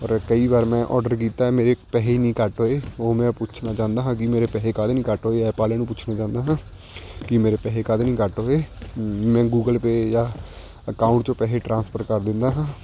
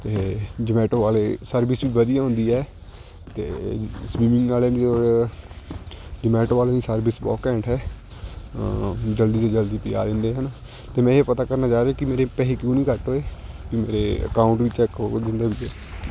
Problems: background sounds at intervals